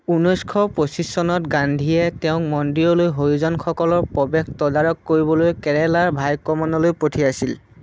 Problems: none marked